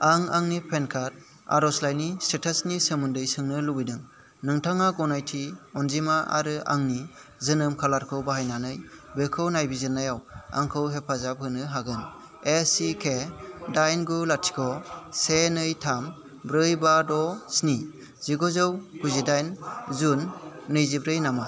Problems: constant background noise